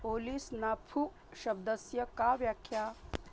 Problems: constant background noise